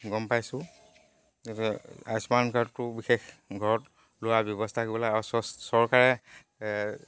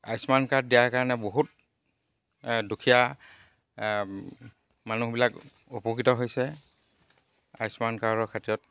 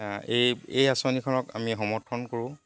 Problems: none marked